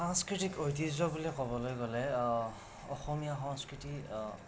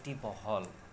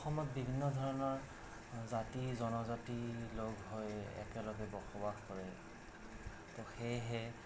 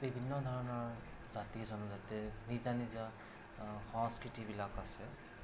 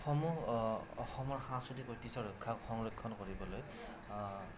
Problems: constant background noise